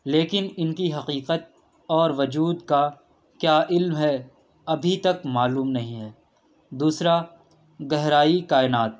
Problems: background sounds at intervals